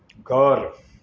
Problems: background sounds at intervals